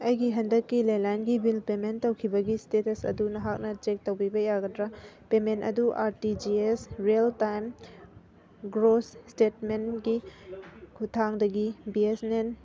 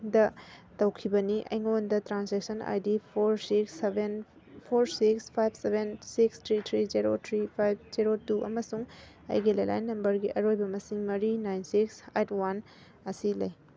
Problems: none marked